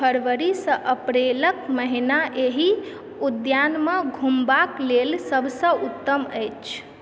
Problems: none marked